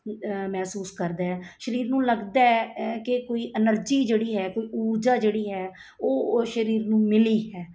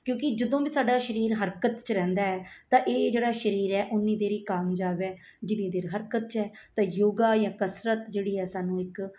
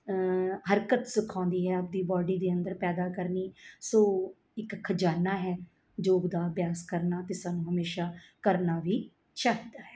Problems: background sounds at intervals